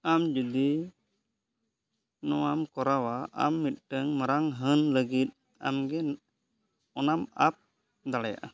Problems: none marked